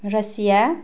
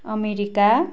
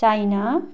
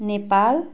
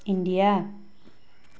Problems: constant background noise